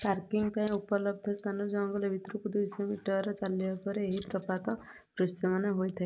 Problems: low volume